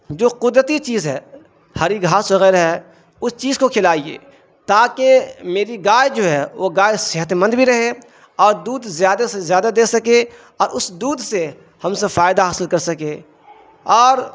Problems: constant background noise